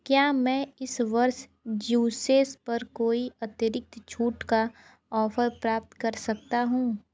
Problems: low volume